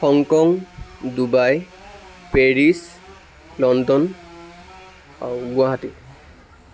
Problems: constant background noise, background conversations at intervals